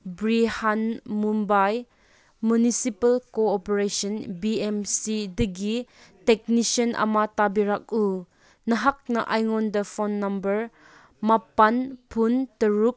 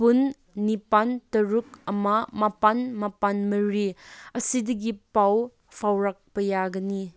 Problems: none marked